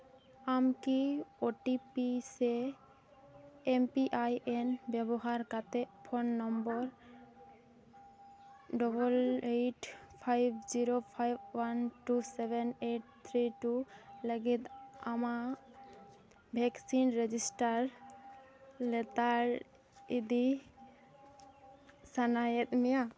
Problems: background conversations at intervals